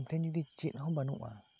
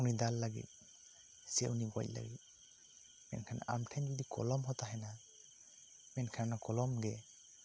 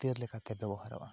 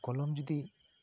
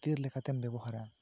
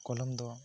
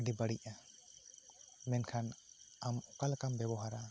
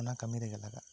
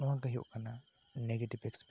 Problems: constant background noise